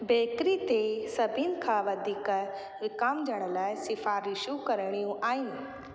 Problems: constant background noise, echo